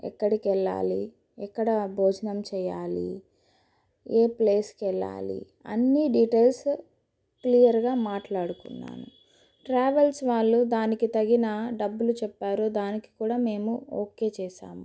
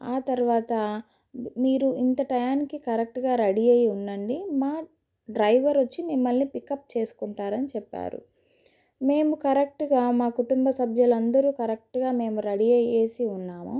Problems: none marked